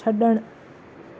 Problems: constant background noise